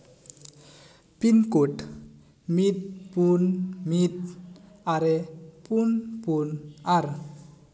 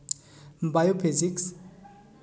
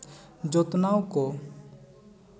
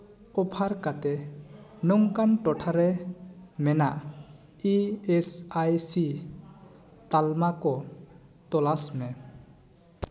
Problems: echo